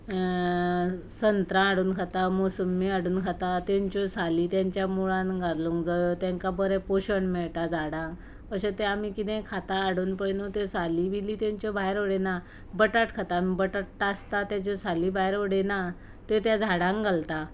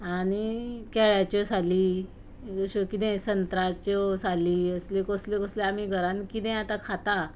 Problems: background sounds at intervals